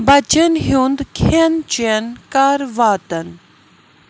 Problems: constant background noise